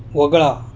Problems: constant background noise